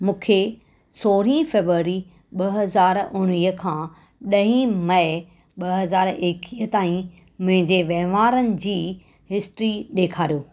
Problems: none marked